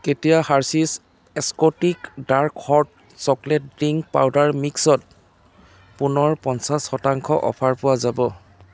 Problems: constant background noise